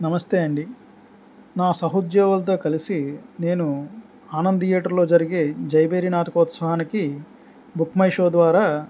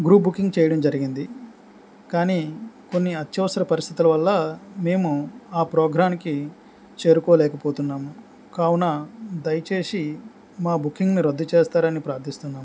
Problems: none marked